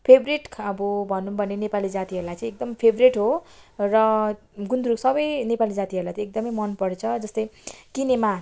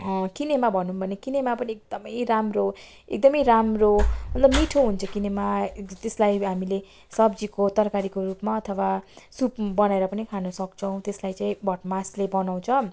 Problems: background sounds at intervals